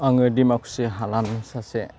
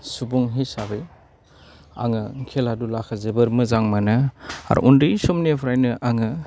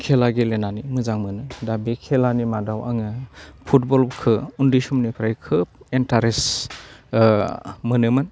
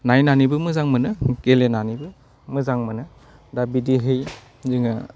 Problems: low volume